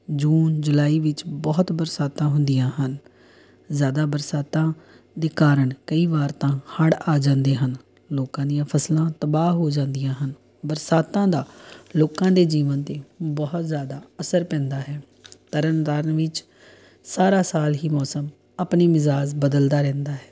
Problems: background sounds at intervals